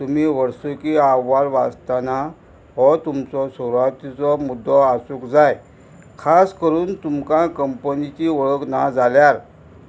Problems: constant background noise